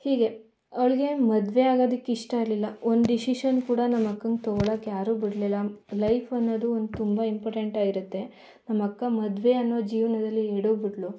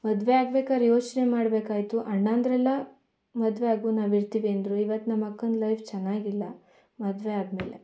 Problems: none marked